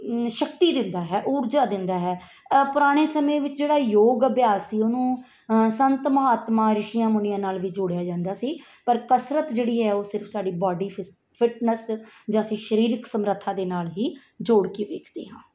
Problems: background sounds at intervals